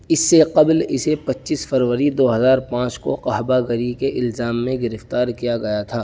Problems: constant background noise